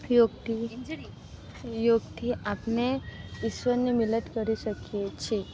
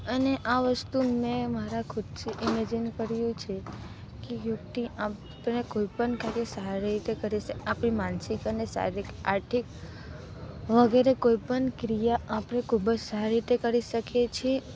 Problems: constant background noise